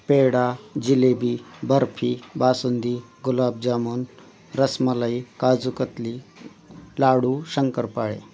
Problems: none marked